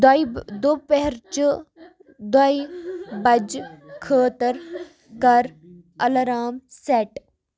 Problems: continuous background conversations